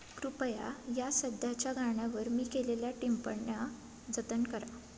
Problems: background sounds at intervals